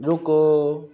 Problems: none marked